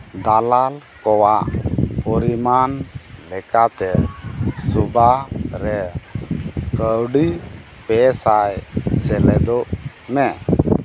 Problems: constant background noise